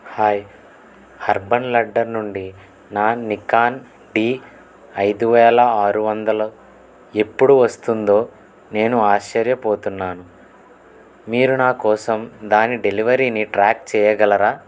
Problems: background sounds at intervals